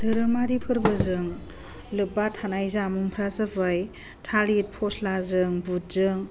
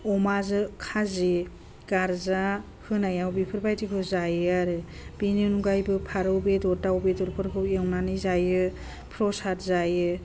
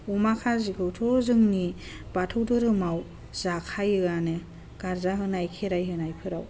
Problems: low volume